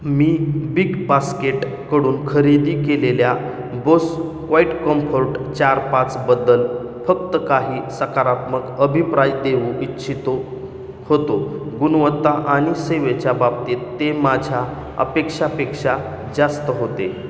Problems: background sounds at intervals, echo